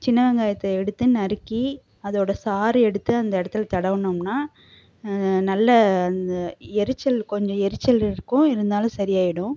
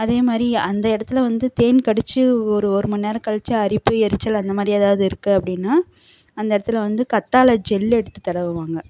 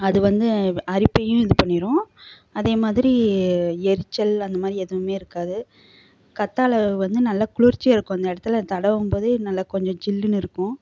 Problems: constant background noise